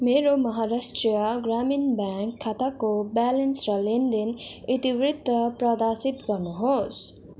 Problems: none marked